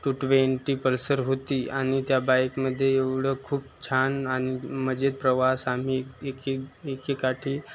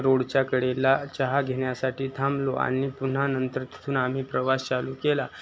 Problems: constant background noise, continuous background conversations